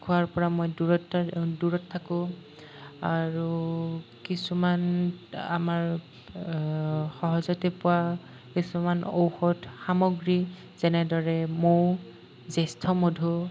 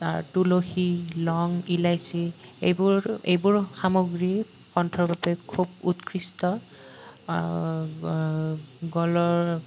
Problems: none marked